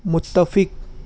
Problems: constant background noise